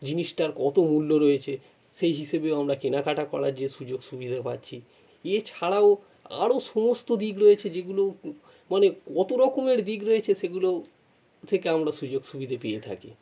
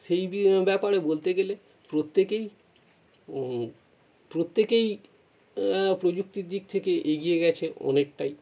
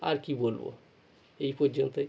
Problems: none marked